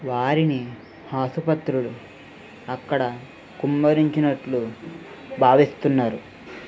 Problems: constant background noise